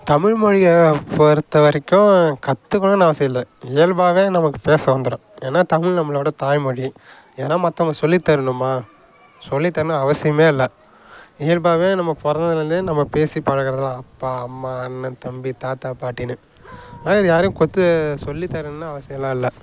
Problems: background sounds at intervals, background conversations at intervals